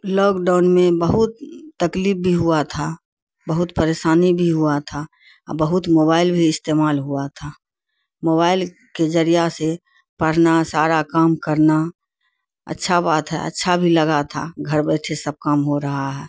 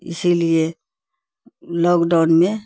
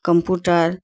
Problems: constant background noise